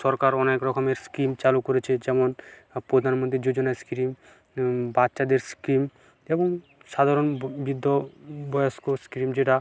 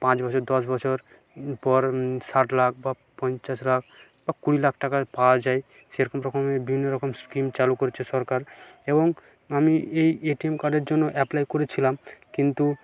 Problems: continuous background conversations